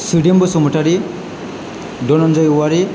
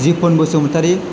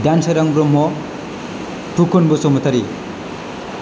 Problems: low volume